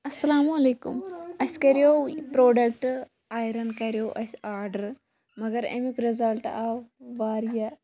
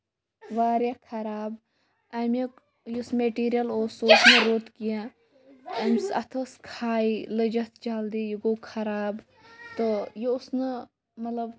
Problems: background sounds at intervals, background conversations at intervals